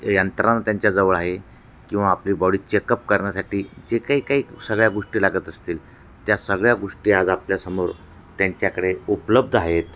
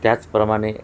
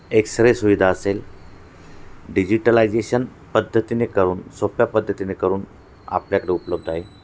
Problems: none marked